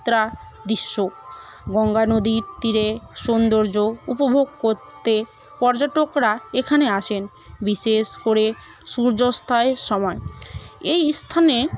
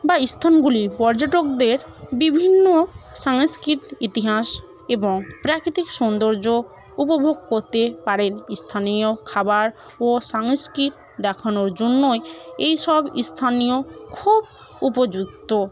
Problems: constant background noise, continuous background conversations